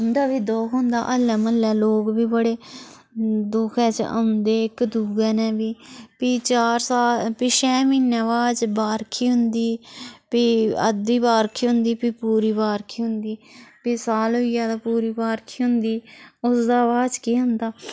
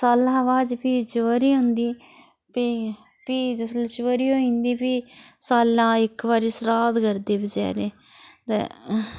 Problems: none marked